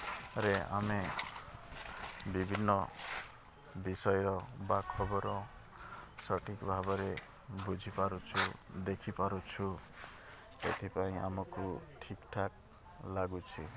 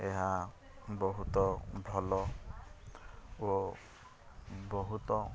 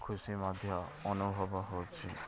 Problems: constant background noise